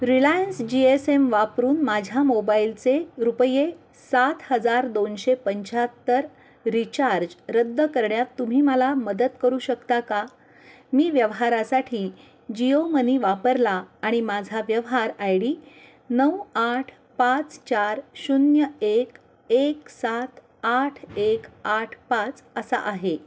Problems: none marked